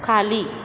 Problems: background sounds at intervals